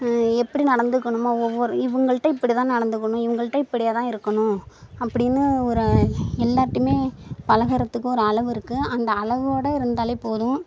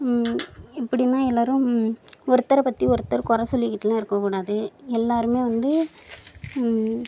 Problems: none marked